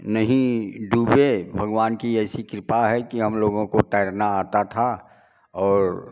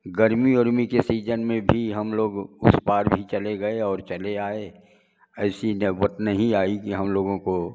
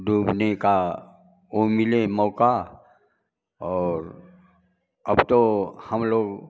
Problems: none marked